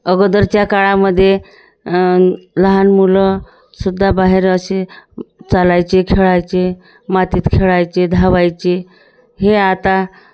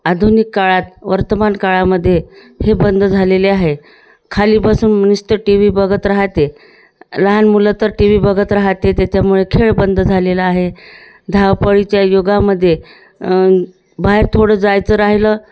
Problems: none marked